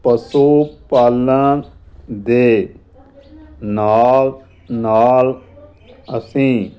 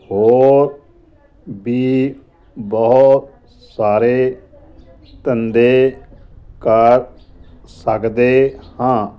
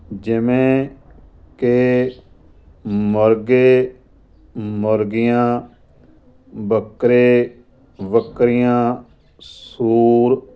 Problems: none marked